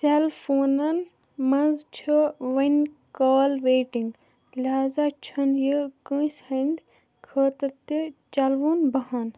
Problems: background sounds at intervals